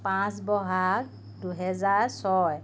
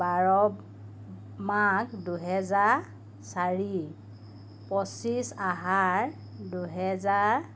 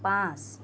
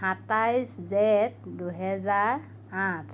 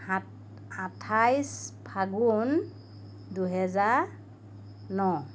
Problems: none marked